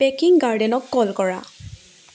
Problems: constant background noise